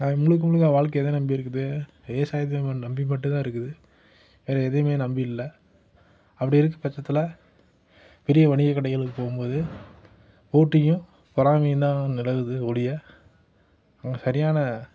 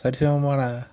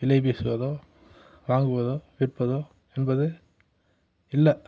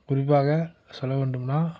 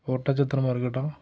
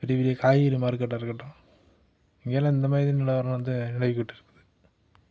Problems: none marked